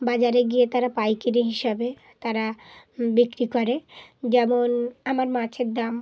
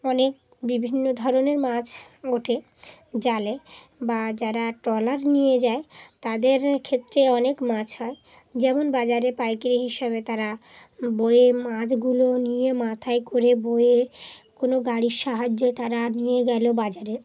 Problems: background sounds at intervals